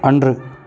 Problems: constant background noise